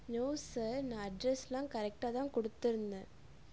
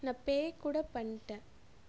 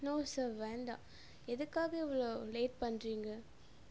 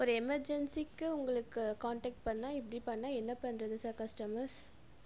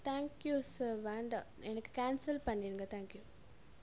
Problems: none marked